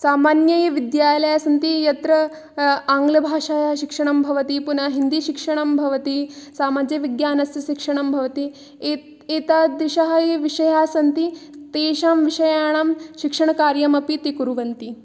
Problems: none marked